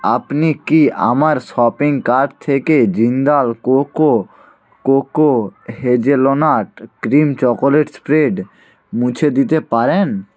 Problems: background conversations at intervals